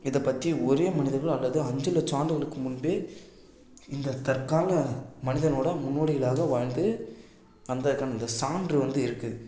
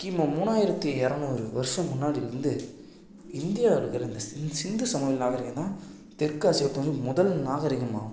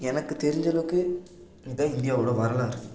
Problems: background sounds at intervals